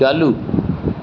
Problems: constant background noise